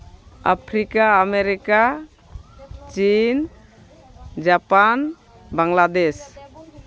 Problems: constant background noise, background conversations at intervals